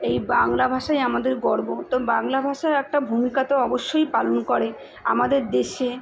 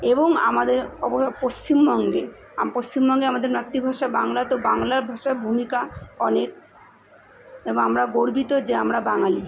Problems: constant background noise